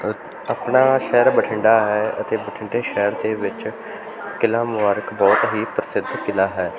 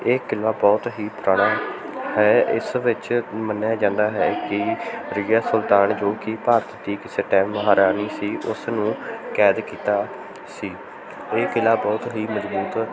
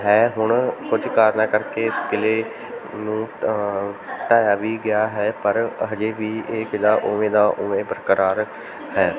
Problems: continuous background conversations